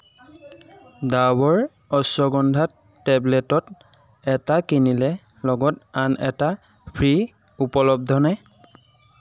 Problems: constant background noise